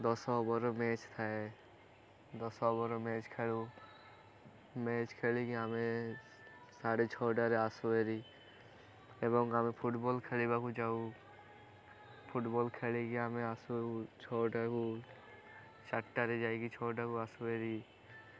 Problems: constant background noise